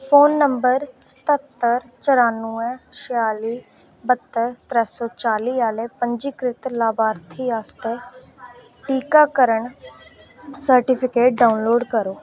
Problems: none marked